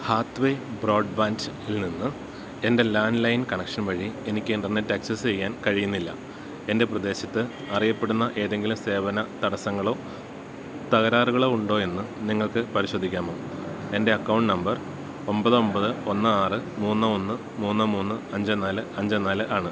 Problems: none marked